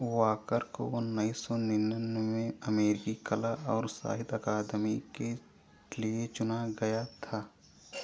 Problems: background sounds at intervals, echo